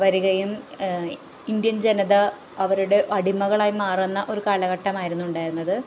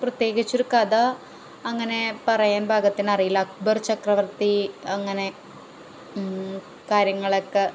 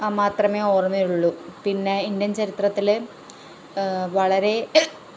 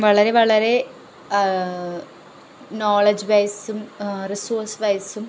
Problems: background sounds at intervals